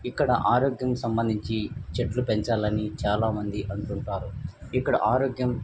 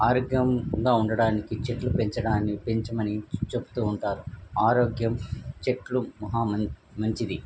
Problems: background sounds at intervals